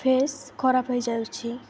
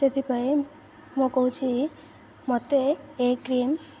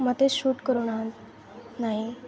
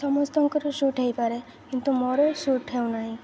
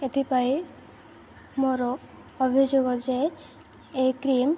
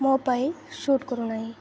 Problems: constant background noise, continuous background conversations